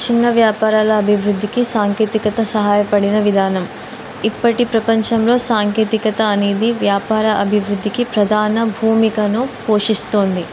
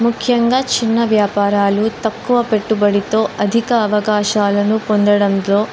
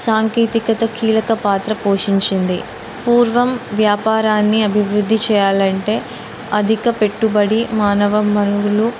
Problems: constant background noise